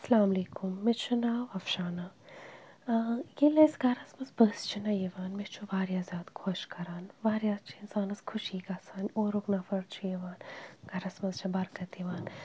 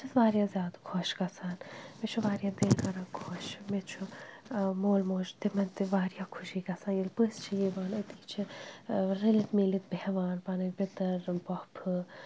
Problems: none marked